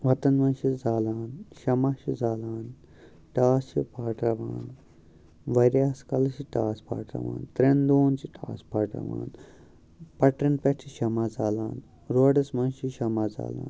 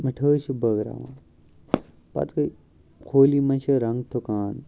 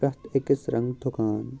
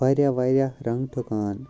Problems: background sounds at intervals, background conversations at intervals